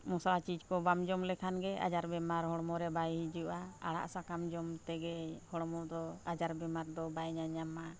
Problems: none marked